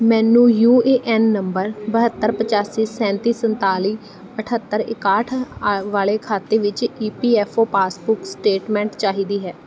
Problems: none marked